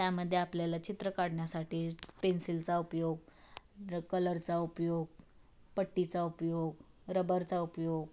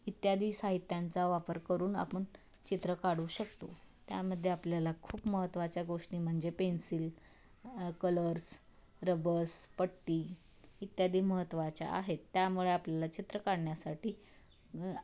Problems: background sounds at intervals